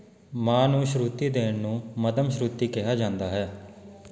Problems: background conversations at intervals